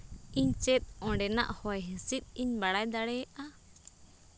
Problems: none marked